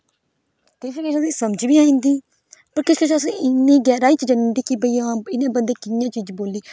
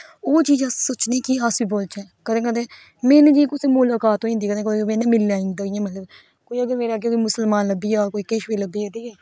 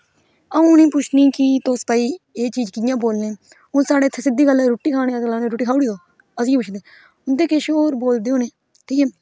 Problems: none marked